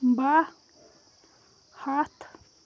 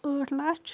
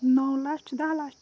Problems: none marked